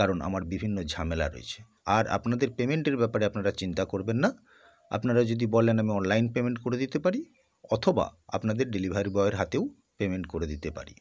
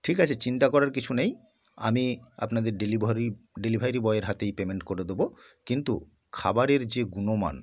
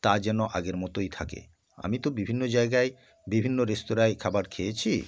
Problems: none marked